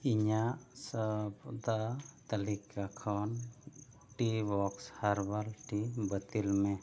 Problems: none marked